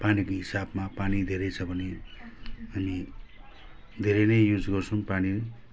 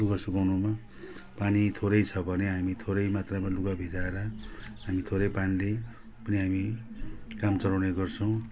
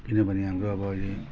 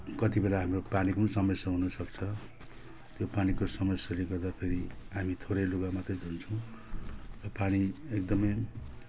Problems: none marked